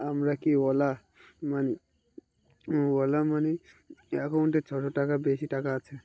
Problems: none marked